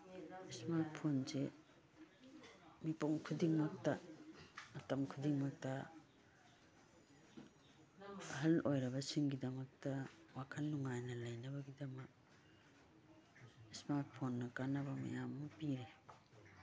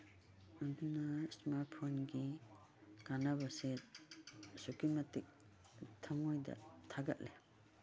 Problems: background sounds at intervals, background conversations at intervals